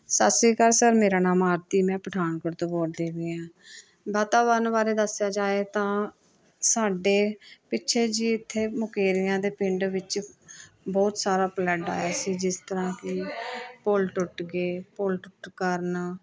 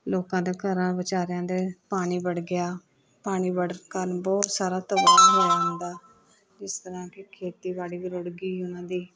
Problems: background sounds at intervals